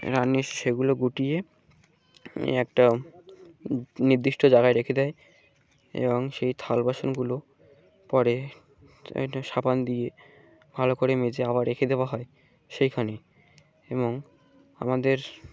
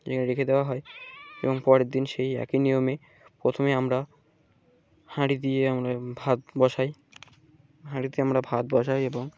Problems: background sounds at intervals